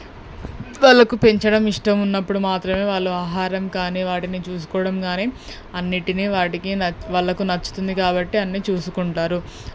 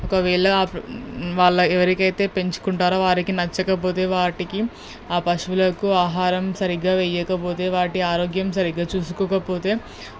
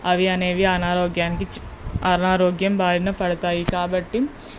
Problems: background sounds at intervals